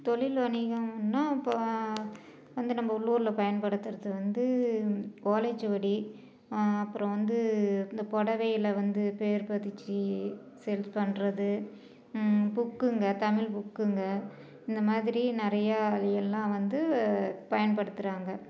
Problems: background conversations at intervals